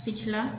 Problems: none marked